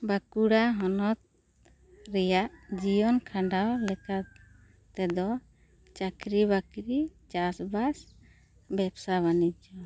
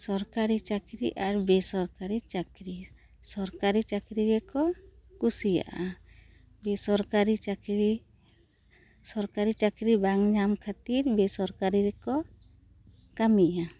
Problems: none marked